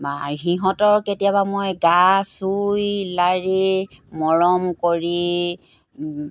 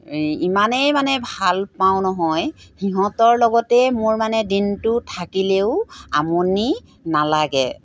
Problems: background sounds at intervals